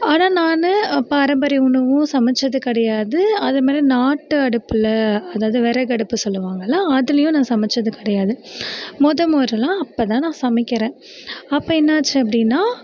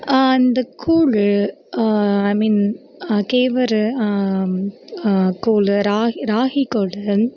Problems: continuous background conversations